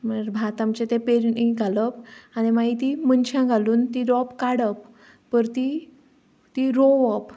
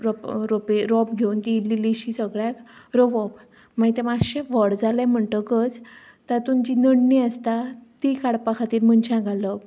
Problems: background sounds at intervals